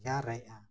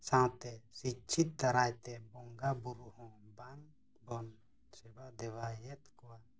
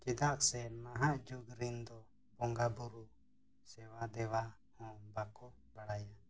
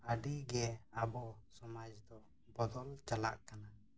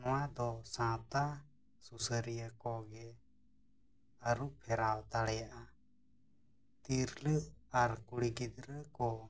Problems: background sounds at intervals, low volume